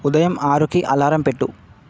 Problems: none marked